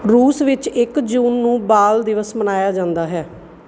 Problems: background sounds at intervals